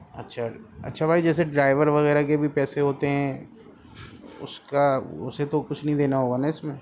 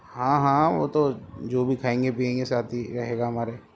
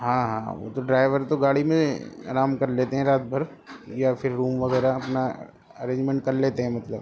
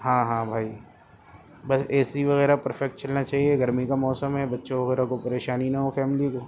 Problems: constant background noise